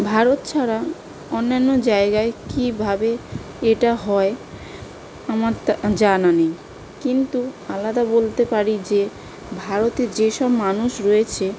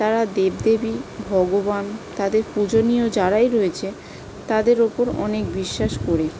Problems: constant background noise